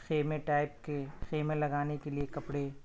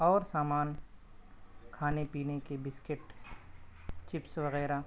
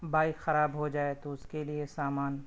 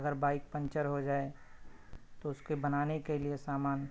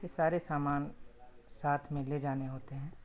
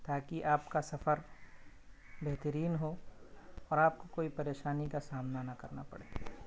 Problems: constant background noise